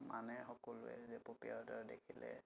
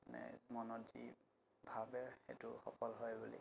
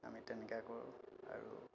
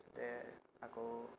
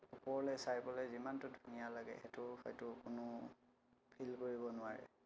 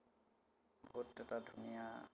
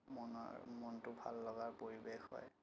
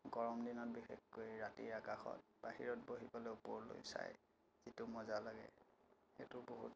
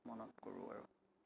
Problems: constant background noise